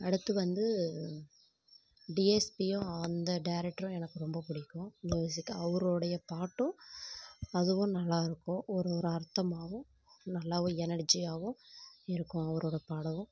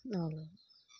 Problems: low volume